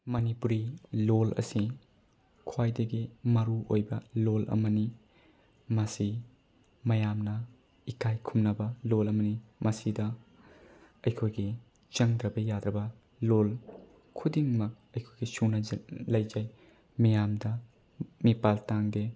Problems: none marked